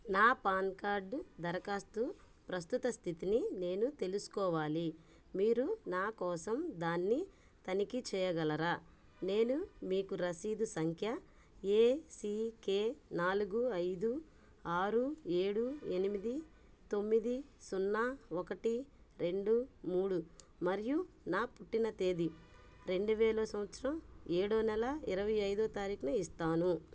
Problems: background sounds at intervals